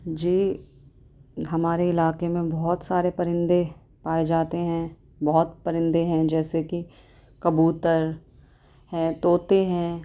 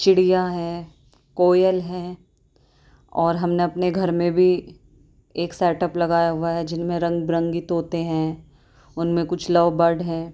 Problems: none marked